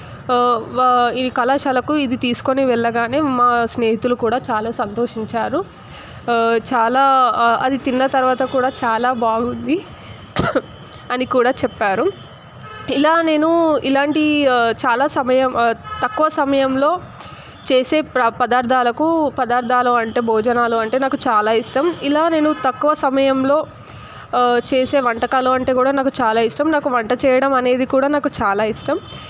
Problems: constant background noise